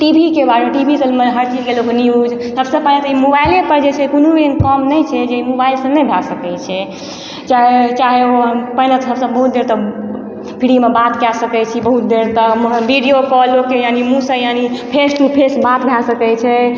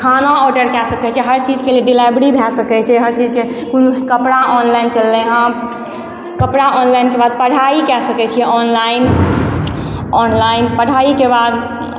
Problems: background sounds at intervals